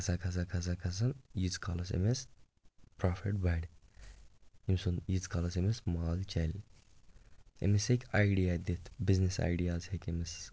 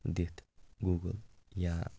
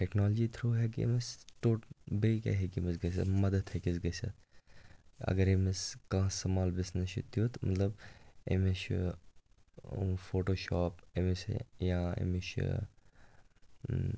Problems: none marked